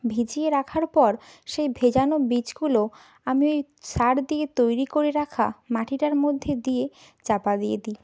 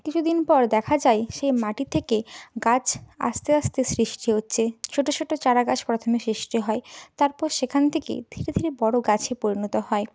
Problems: background sounds at intervals